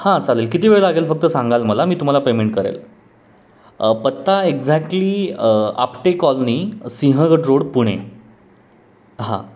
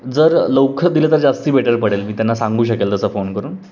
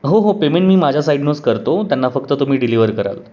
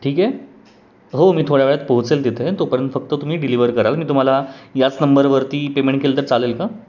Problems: none marked